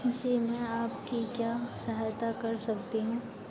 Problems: constant background noise